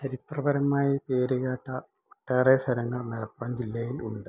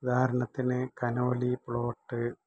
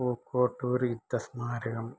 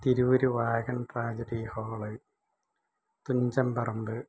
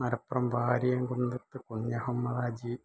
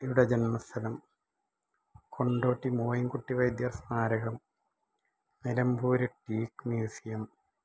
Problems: low volume